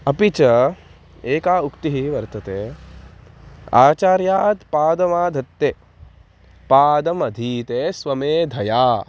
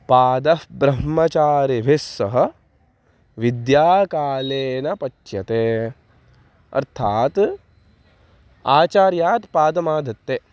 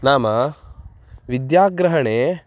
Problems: constant background noise